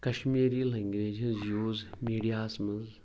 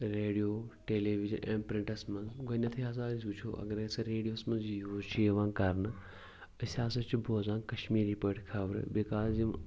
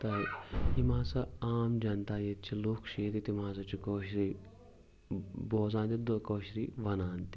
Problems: background sounds at intervals, background conversations at intervals